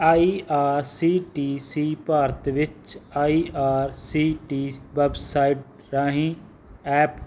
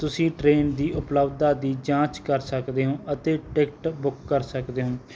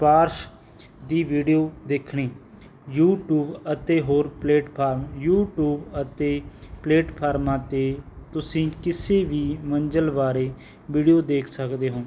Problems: none marked